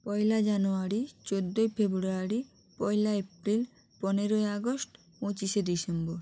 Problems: constant background noise